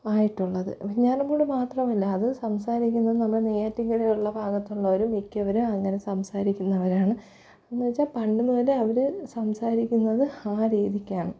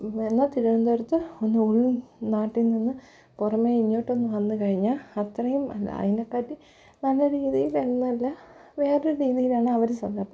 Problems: low volume